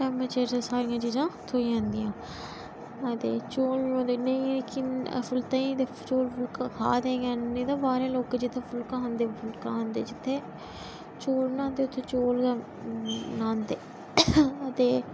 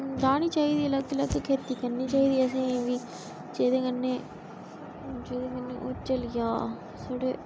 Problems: constant background noise, background conversations at intervals